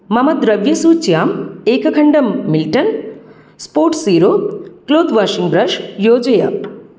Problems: none marked